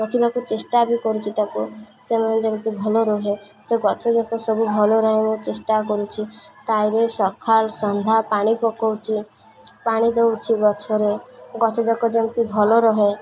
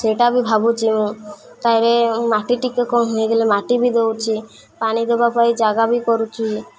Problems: constant background noise, continuous background conversations